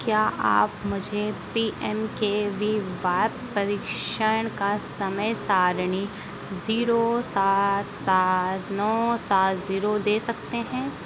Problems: constant background noise